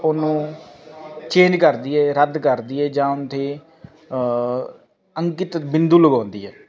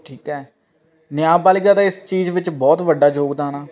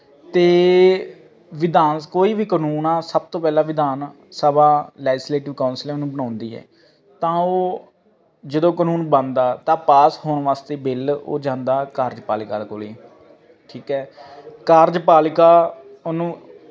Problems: constant background noise